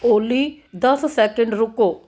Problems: background sounds at intervals